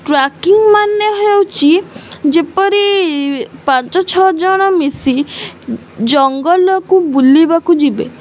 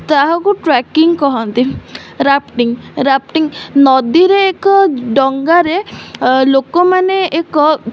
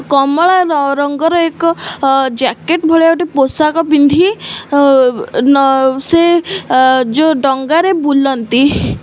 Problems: none marked